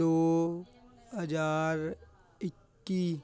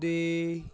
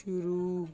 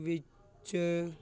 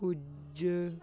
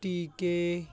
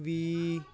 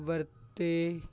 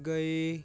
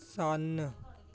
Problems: background sounds at intervals